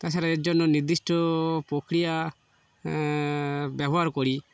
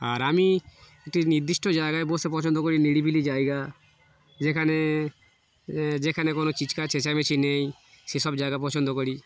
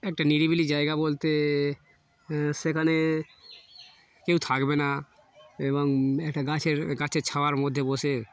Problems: constant background noise